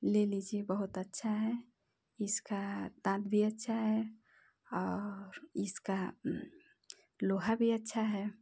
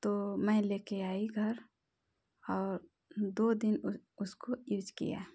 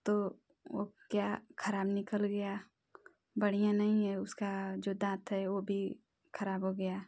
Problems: none marked